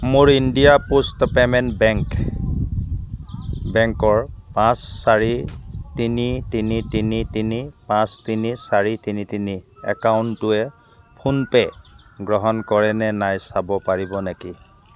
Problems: background sounds at intervals